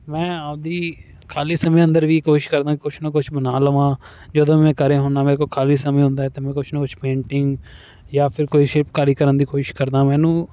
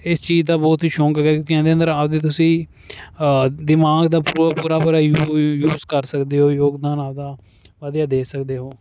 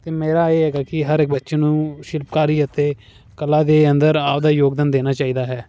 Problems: none marked